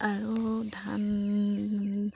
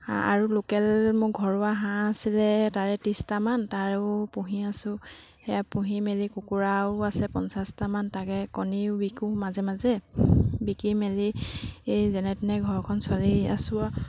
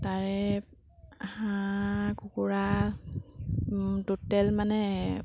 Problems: background sounds at intervals